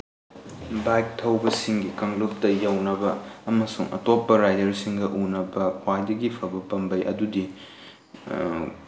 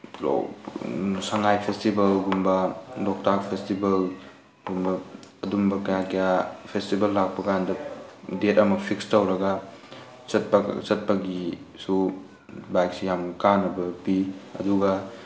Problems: constant background noise, background conversations at intervals